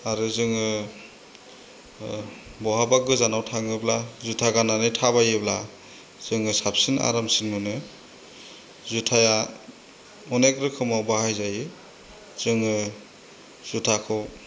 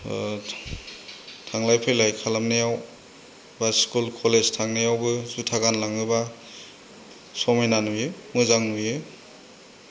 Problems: constant background noise